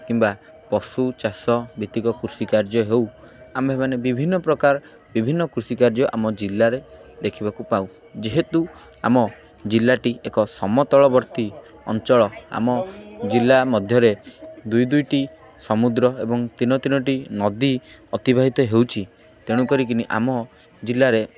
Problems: constant background noise, continuous background conversations